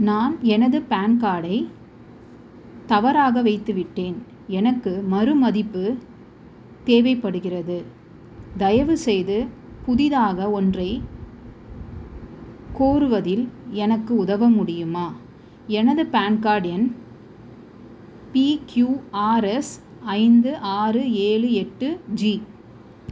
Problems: constant background noise